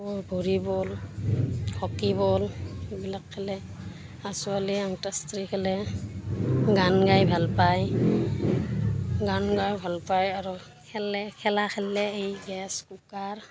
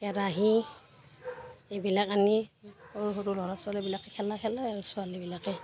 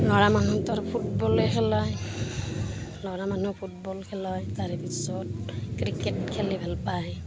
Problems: constant background noise, background conversations at intervals